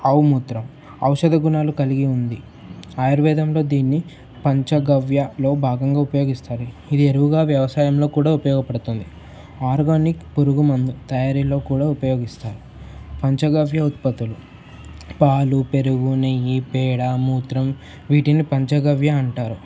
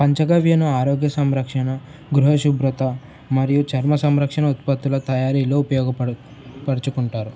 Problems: none marked